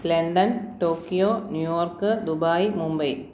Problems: none marked